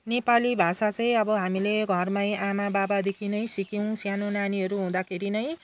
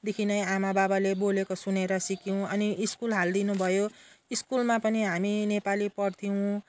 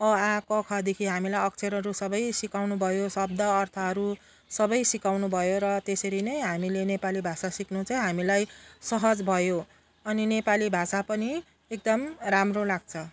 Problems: none marked